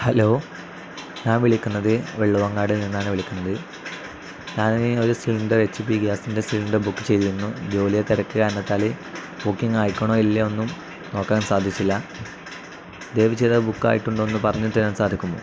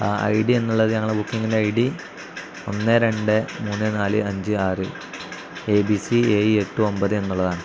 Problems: constant background noise